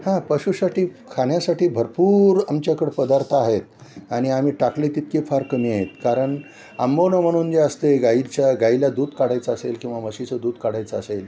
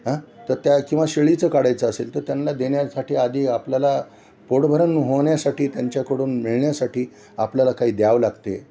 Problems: none marked